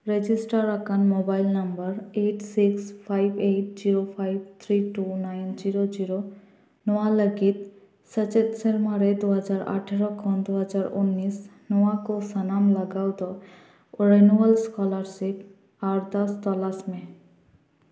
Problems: echo